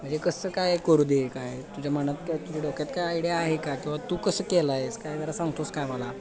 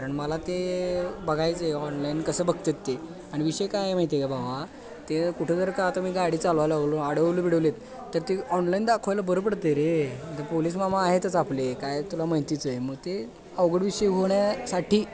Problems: continuous background conversations